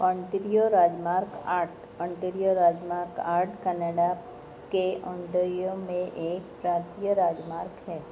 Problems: none marked